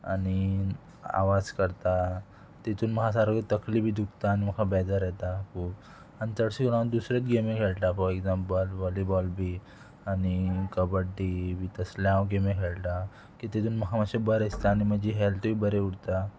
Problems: background conversations at intervals